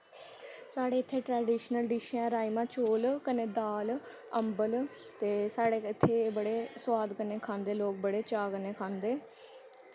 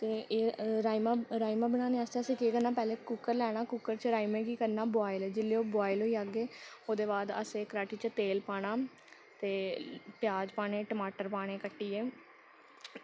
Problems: constant background noise